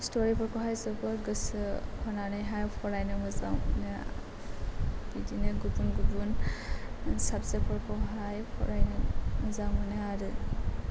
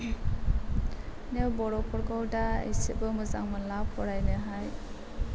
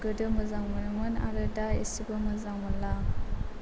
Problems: constant background noise